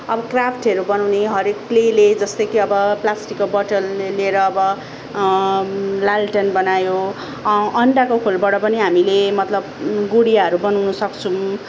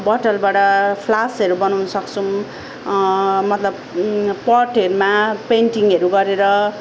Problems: none marked